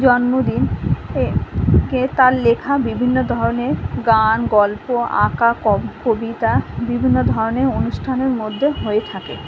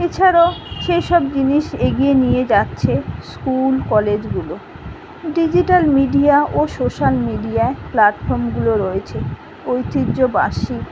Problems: constant background noise